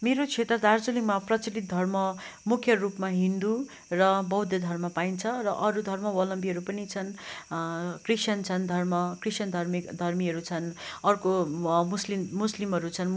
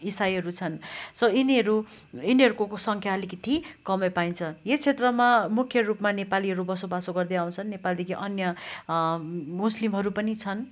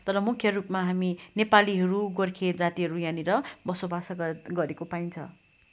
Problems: background sounds at intervals